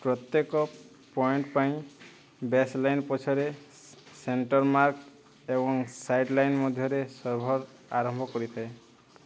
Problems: constant background noise